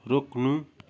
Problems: background sounds at intervals